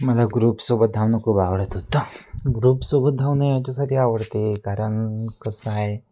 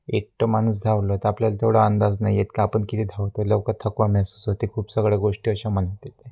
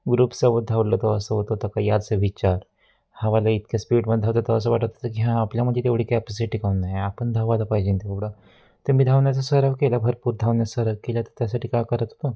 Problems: constant background noise